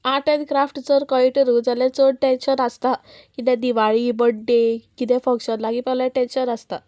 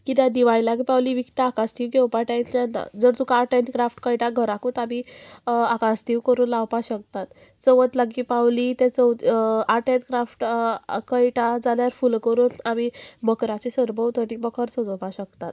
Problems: constant background noise